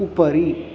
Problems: none marked